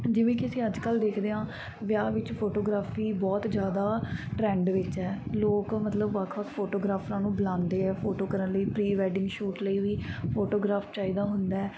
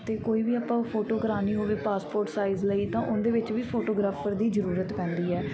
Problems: constant background noise